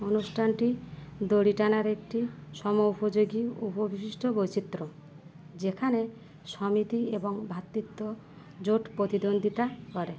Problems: none marked